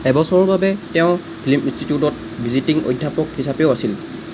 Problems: none marked